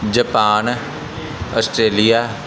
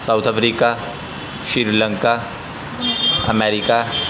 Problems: constant background noise